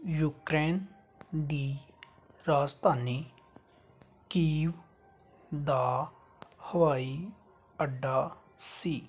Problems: background sounds at intervals